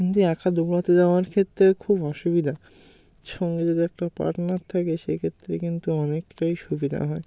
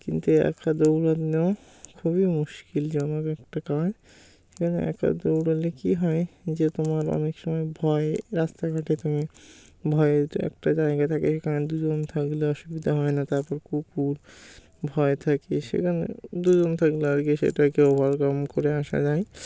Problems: background sounds at intervals